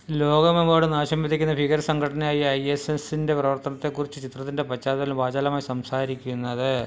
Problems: none marked